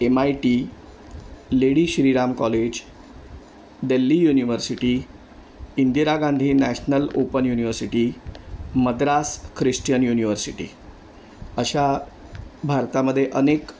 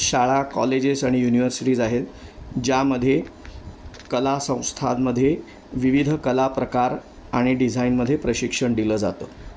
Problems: none marked